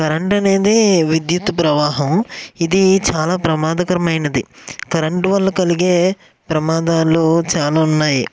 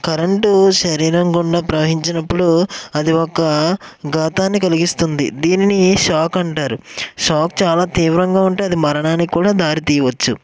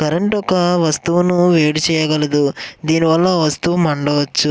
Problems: none marked